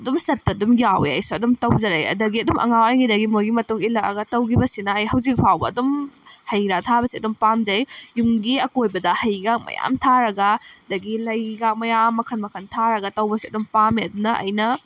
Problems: background sounds at intervals